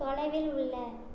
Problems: low volume